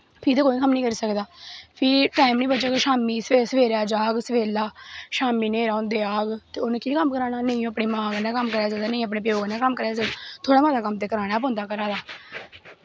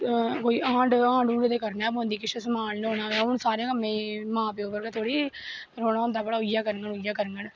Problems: background sounds at intervals